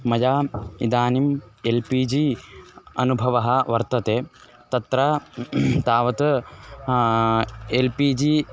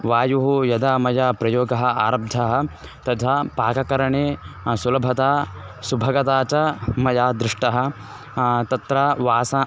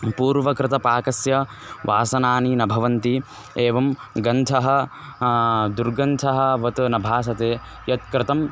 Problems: constant background noise